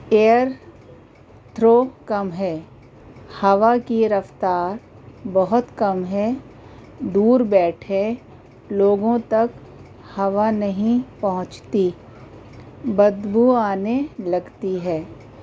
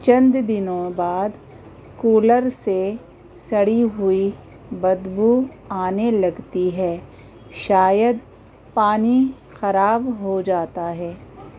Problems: constant background noise